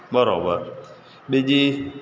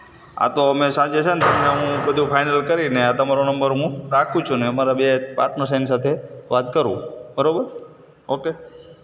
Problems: constant background noise, background conversations at intervals